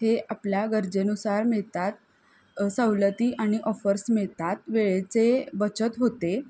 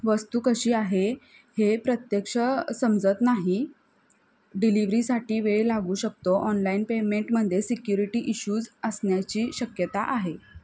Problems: none marked